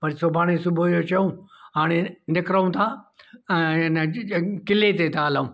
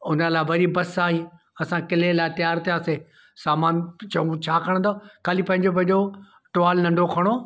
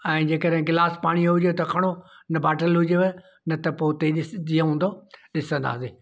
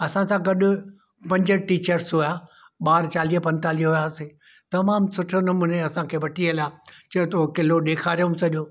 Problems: none marked